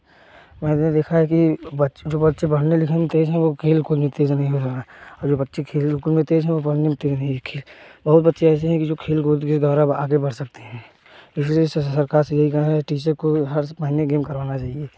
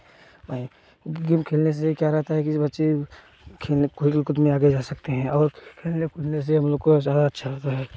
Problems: background sounds at intervals